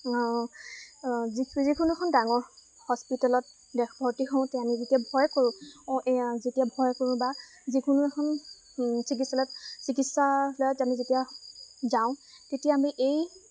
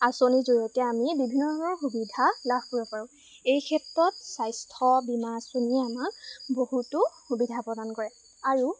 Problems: constant background noise